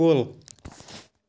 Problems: none marked